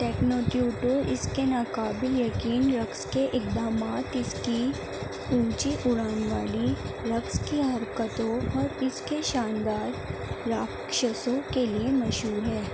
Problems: constant background noise